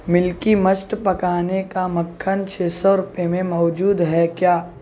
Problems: none marked